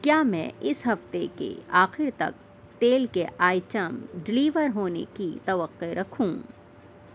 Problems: constant background noise